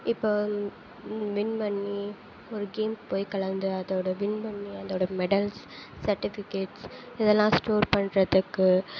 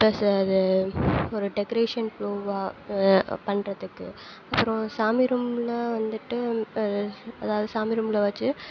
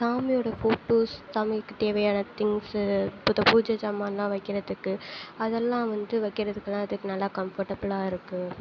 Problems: constant background noise